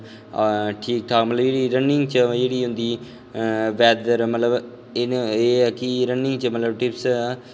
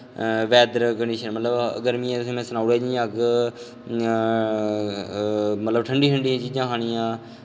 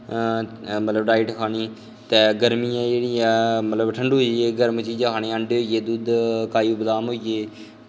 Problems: background sounds at intervals, echo